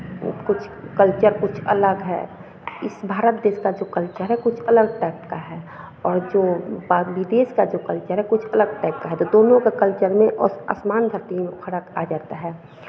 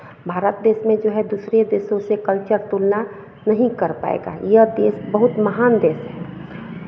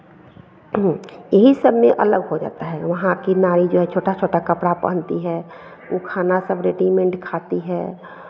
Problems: none marked